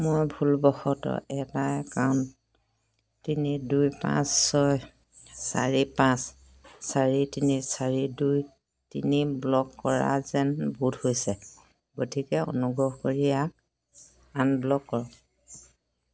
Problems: constant background noise